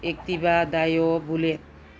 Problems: background sounds at intervals